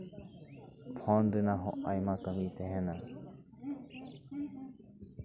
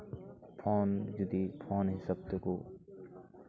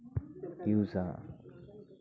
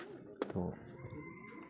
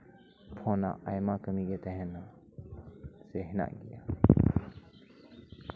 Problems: constant background noise, continuous background conversations